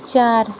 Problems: constant background noise